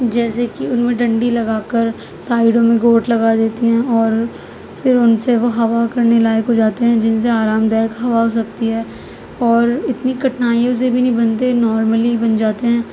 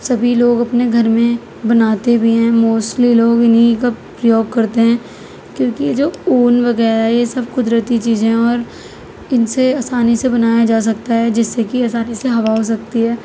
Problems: constant background noise